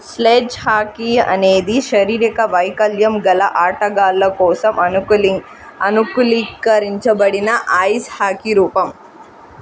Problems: constant background noise